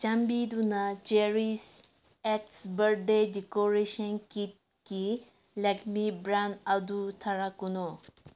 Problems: none marked